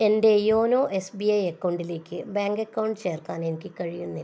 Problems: none marked